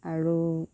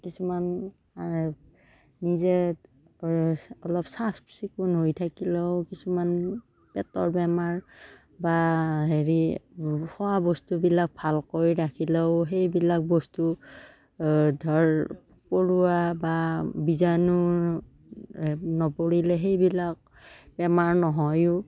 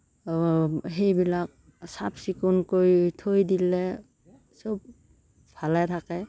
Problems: constant background noise